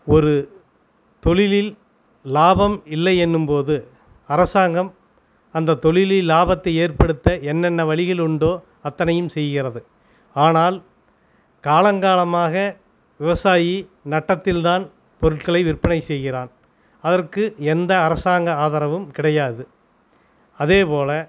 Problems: none marked